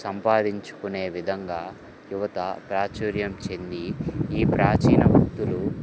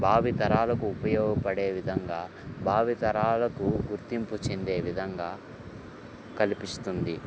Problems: background sounds at intervals